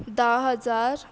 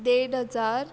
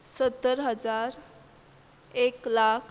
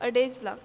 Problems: constant background noise